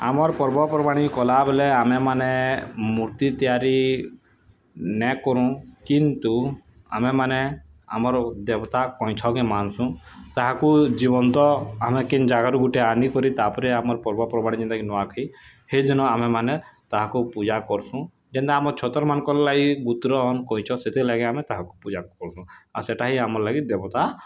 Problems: none marked